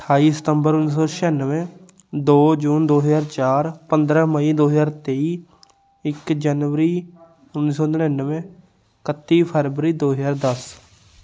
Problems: none marked